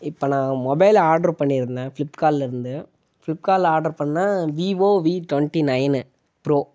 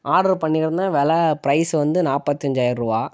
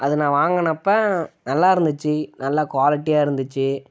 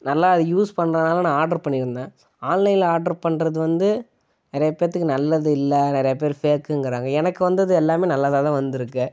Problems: none marked